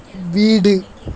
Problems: constant background noise, continuous background conversations